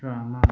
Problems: none marked